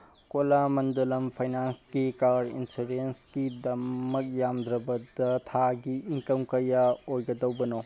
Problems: background sounds at intervals